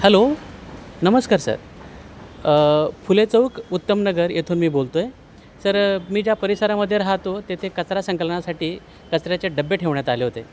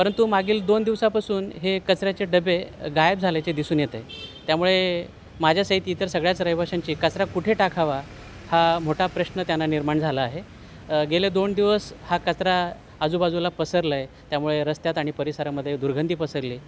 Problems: constant background noise